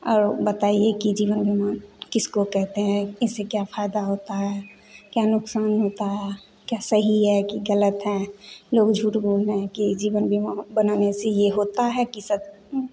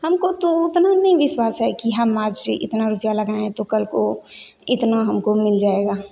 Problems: none marked